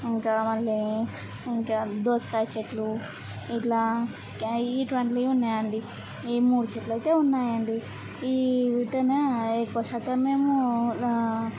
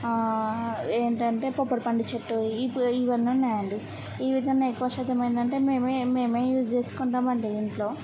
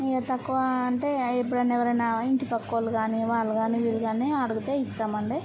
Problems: constant background noise